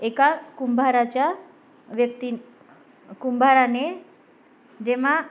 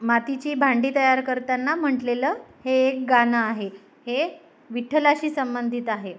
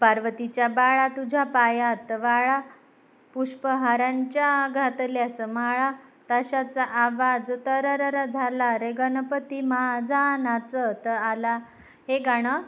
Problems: background sounds at intervals